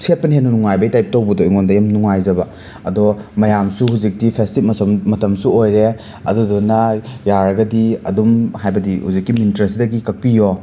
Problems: constant background noise